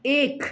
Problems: none marked